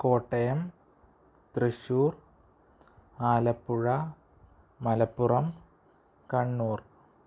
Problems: low volume